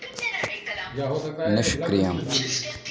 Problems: background sounds at intervals, background conversations at intervals